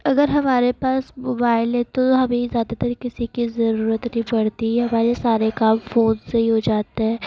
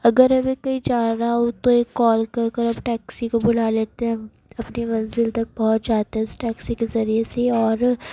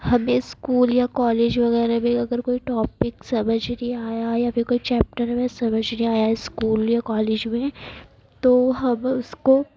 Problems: background sounds at intervals